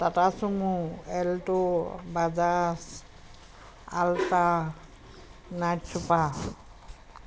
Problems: constant background noise